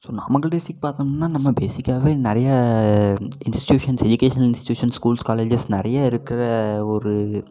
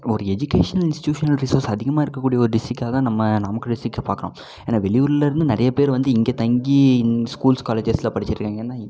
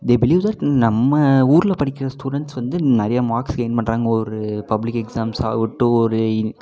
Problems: none marked